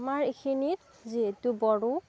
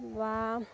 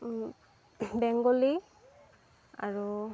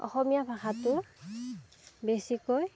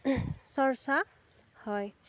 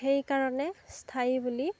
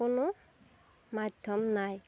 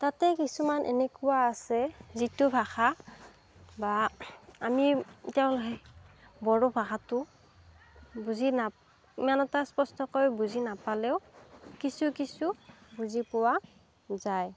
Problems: background sounds at intervals